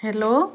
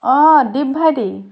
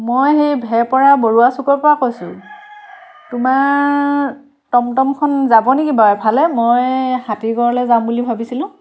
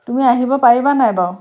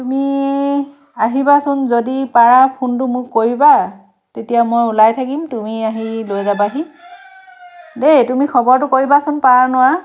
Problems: none marked